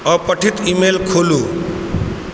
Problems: constant background noise